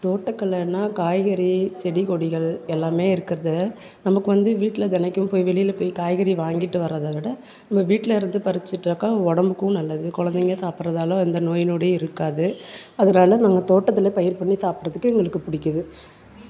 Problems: none marked